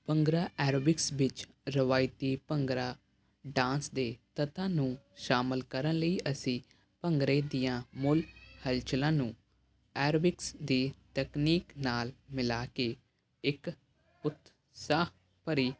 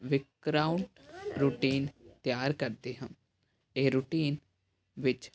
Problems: none marked